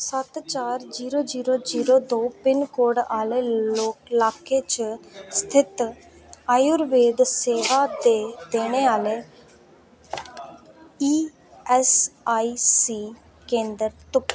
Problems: none marked